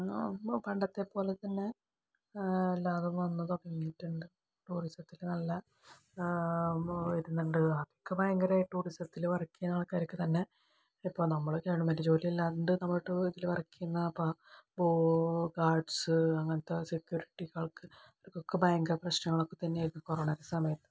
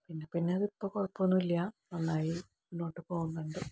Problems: low volume